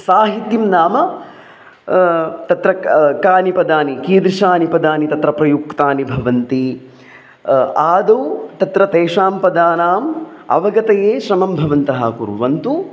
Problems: background sounds at intervals